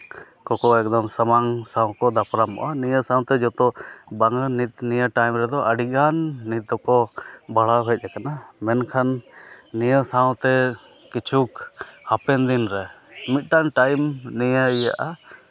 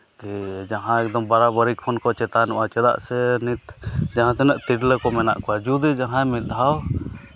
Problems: constant background noise